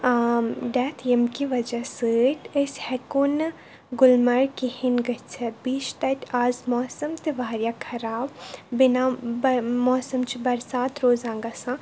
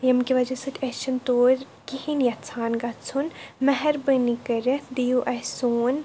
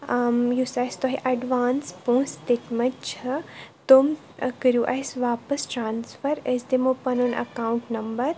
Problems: none marked